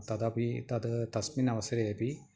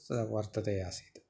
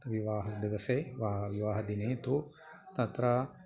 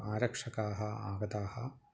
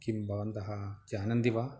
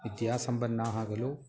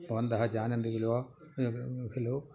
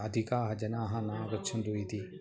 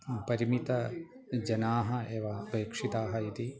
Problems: background conversations at intervals